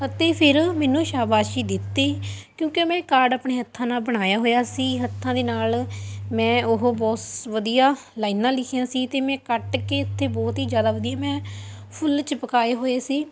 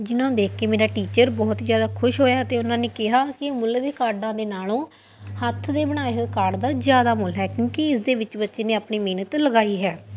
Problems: none marked